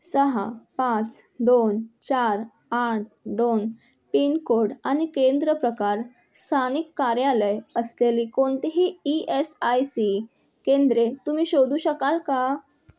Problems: constant background noise